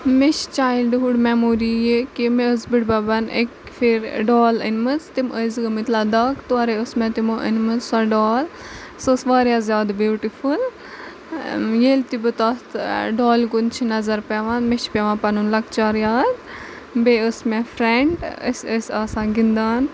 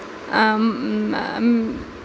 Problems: background sounds at intervals, background conversations at intervals